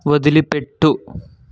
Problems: constant background noise